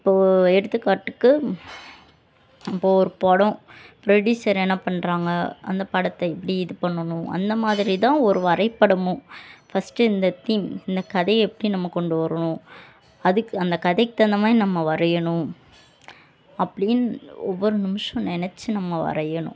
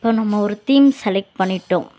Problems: constant background noise, continuous background conversations